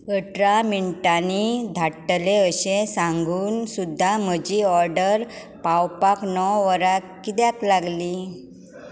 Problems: constant background noise